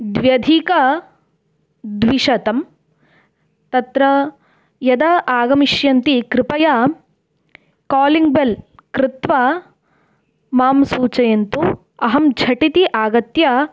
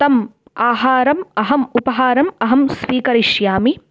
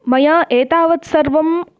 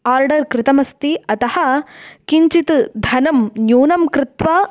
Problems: background sounds at intervals